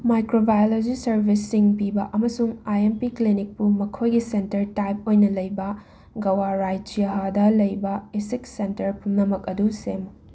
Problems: constant background noise